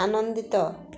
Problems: none marked